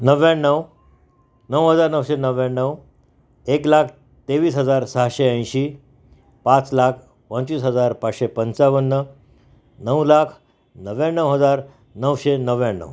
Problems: constant background noise